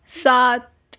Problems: none marked